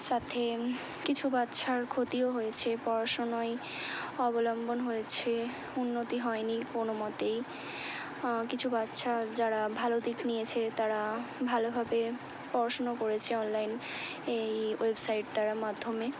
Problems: low volume